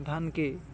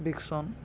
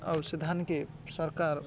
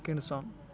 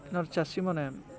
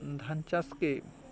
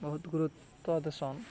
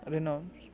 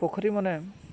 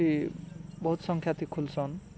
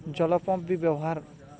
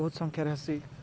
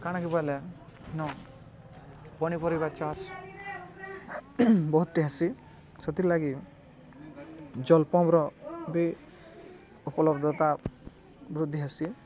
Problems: constant background noise, continuous background conversations